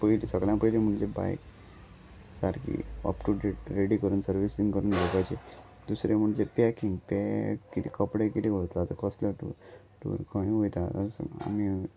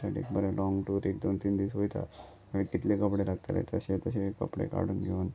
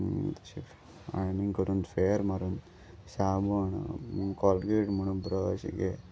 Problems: none marked